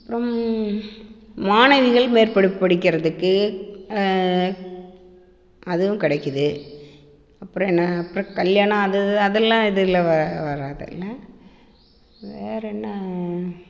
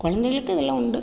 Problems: constant background noise, echo